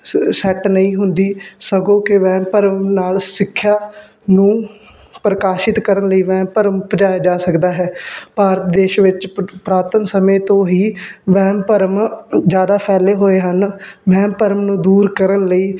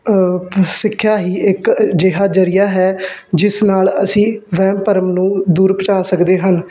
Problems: background sounds at intervals